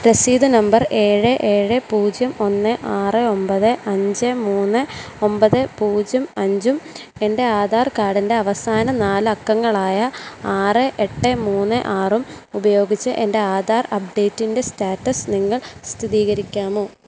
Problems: constant background noise